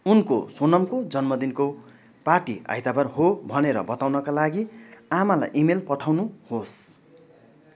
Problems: continuous background conversations